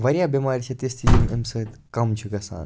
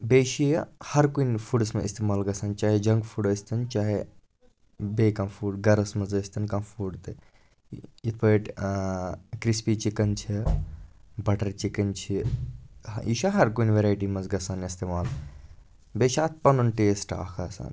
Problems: background sounds at intervals, background conversations at intervals